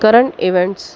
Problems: background sounds at intervals